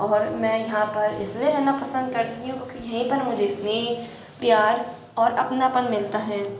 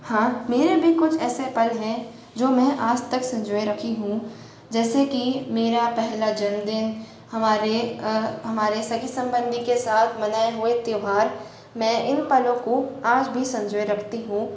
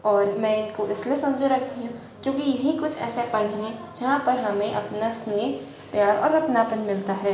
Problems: echo